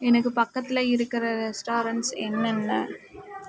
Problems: constant background noise